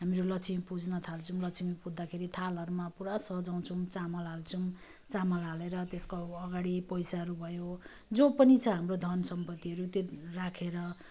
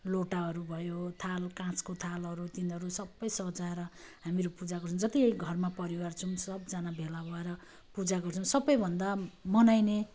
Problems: none marked